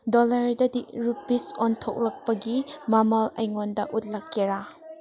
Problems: background conversations at intervals